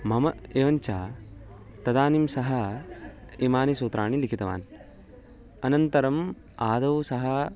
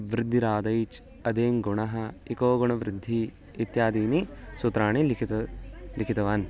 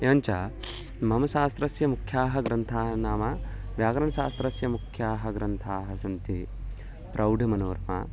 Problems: none marked